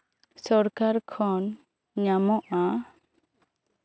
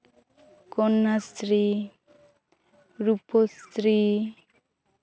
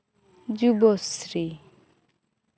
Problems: constant background noise, background conversations at intervals